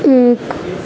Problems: constant background noise, low volume